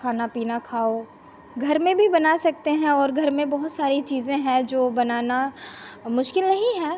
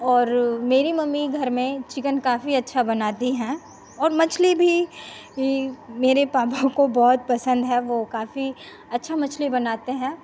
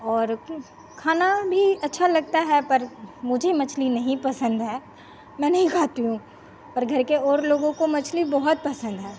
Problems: constant background noise